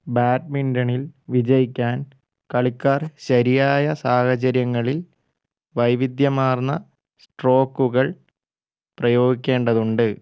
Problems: low volume